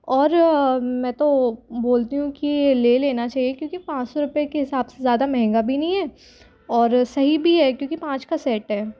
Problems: none marked